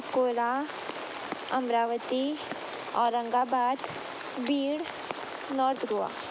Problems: constant background noise